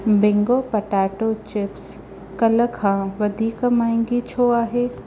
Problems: none marked